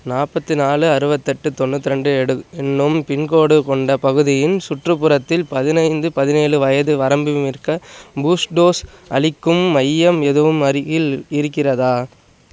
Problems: none marked